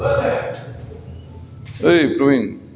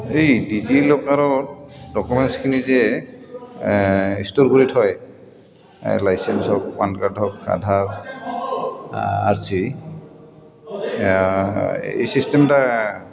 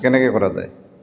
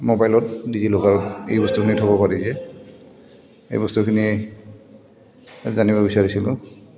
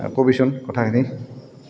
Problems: none marked